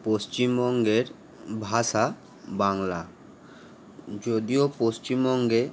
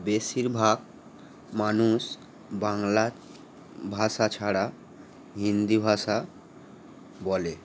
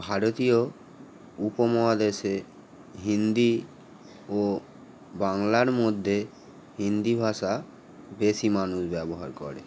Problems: none marked